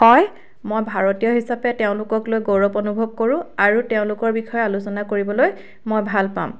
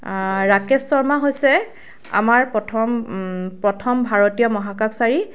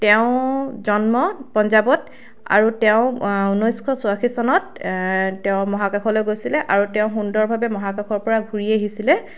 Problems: constant background noise